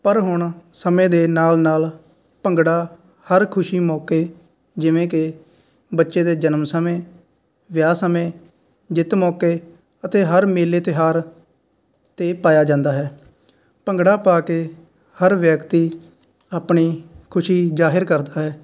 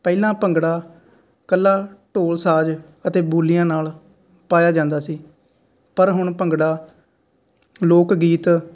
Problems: none marked